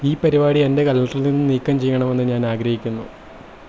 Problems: constant background noise